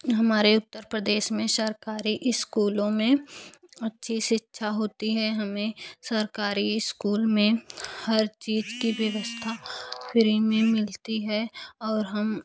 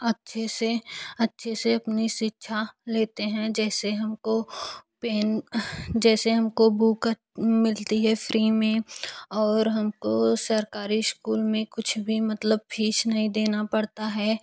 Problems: none marked